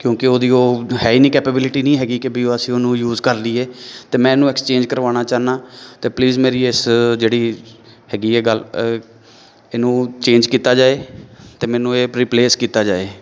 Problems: none marked